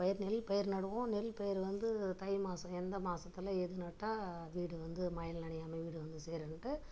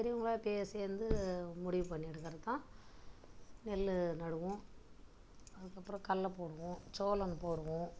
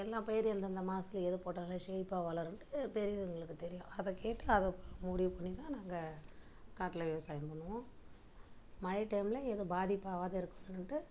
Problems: low volume